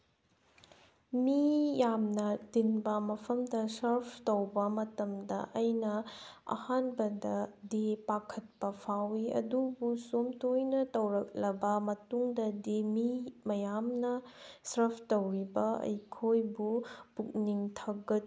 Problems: background sounds at intervals